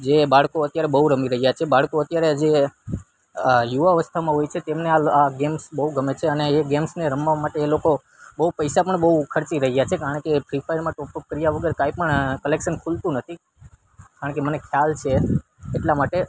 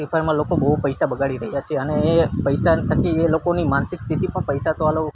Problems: constant background noise